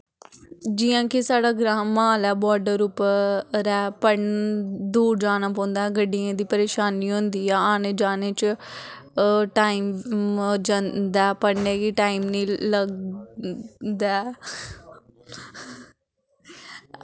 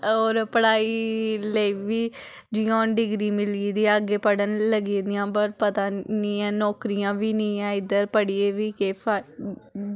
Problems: none marked